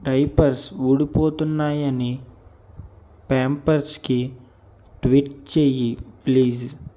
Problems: none marked